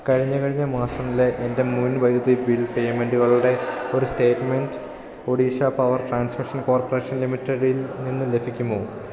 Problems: constant background noise